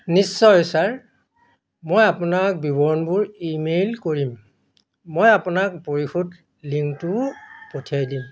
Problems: constant background noise